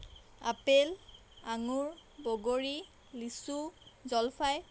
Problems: background sounds at intervals